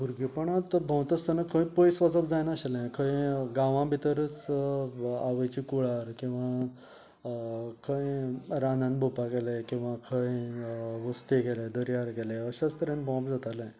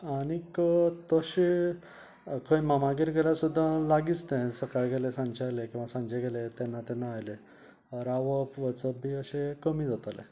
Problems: background sounds at intervals